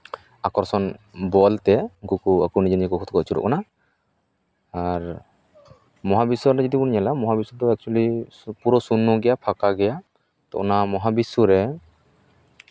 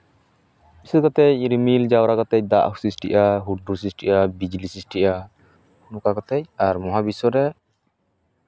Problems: background sounds at intervals, background conversations at intervals